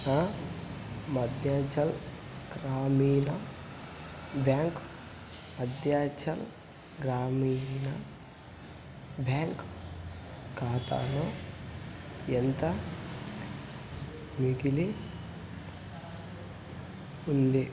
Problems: constant background noise